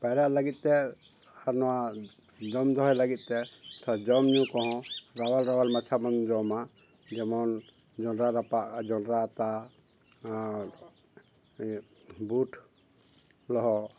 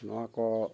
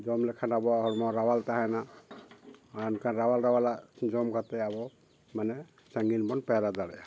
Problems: background sounds at intervals